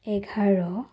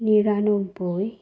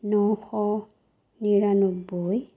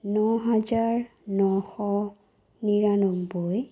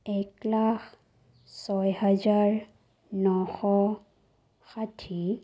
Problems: none marked